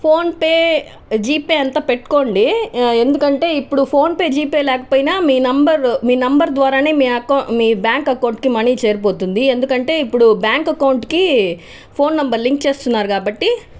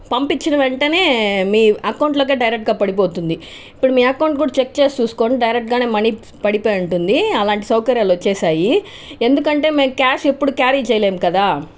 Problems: none marked